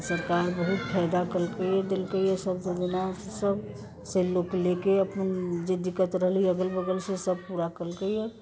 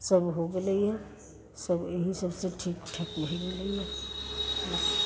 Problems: constant background noise